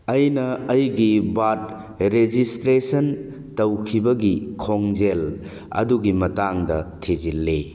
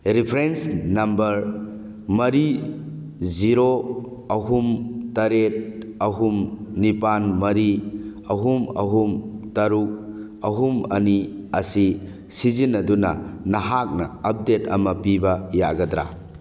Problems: none marked